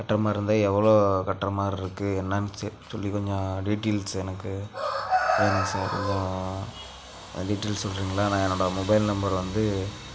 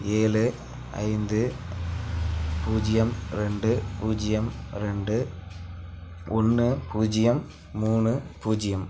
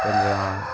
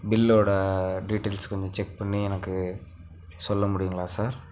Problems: none marked